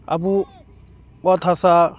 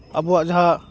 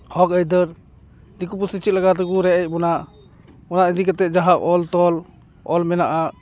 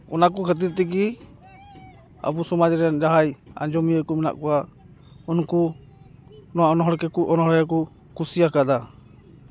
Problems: background conversations at intervals